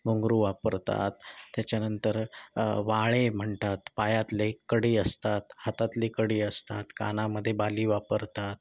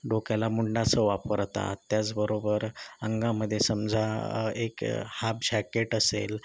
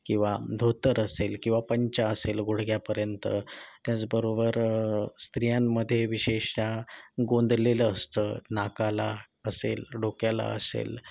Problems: none marked